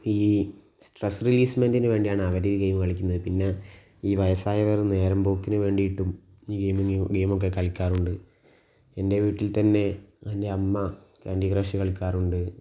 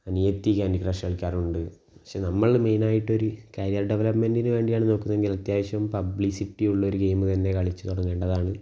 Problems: low volume